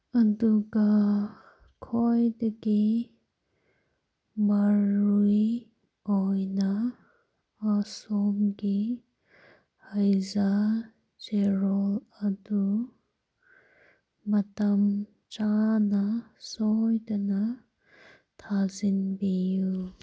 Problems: none marked